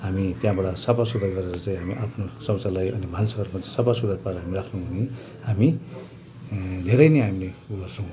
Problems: constant background noise